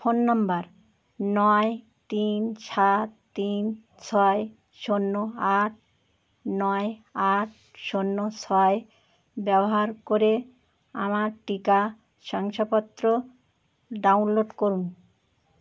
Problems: none marked